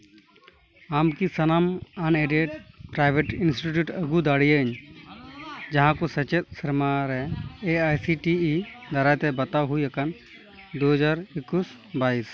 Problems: background sounds at intervals, continuous background conversations